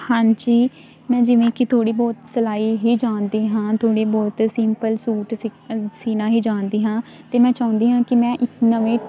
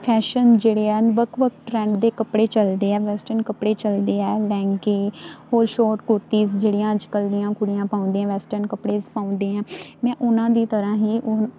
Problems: none marked